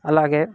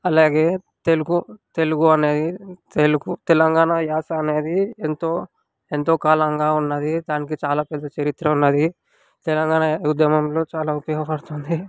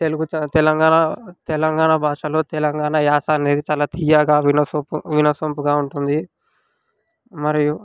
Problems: background sounds at intervals